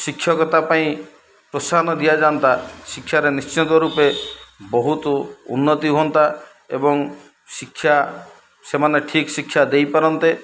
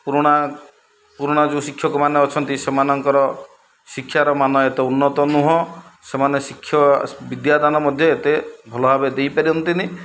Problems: none marked